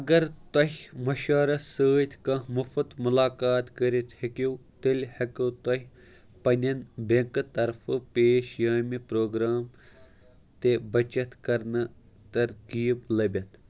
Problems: background sounds at intervals